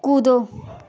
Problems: constant background noise